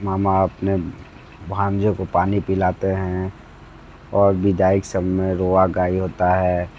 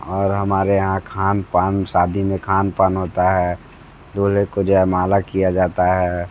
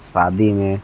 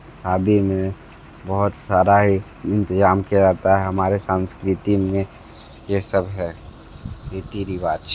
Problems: constant background noise